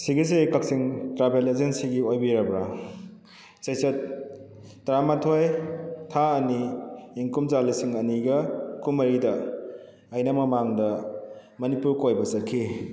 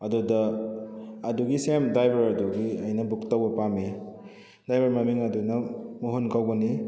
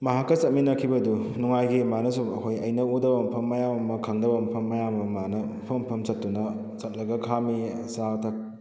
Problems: background sounds at intervals